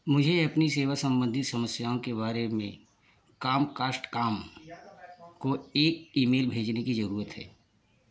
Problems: background sounds at intervals